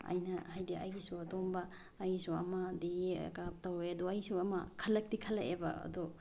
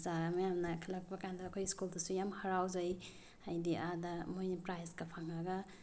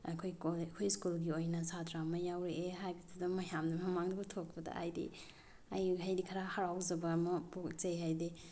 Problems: none marked